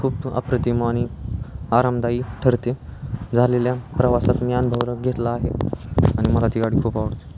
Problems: constant background noise, background conversations at intervals